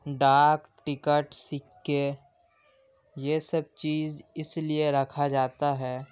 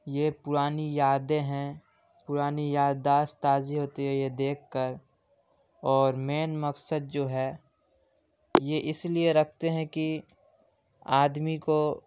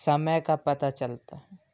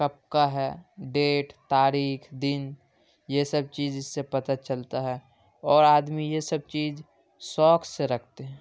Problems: constant background noise